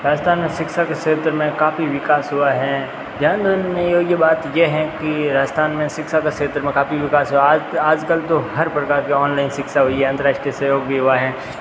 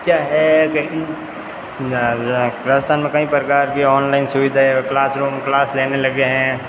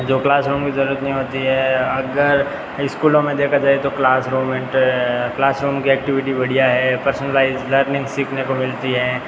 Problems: constant background noise